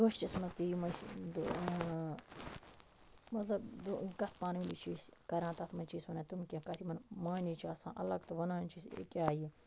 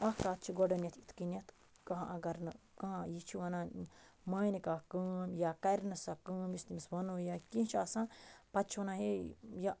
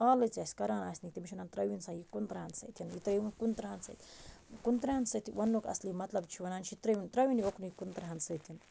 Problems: none marked